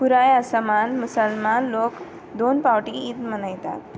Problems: background sounds at intervals